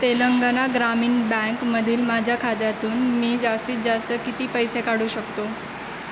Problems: constant background noise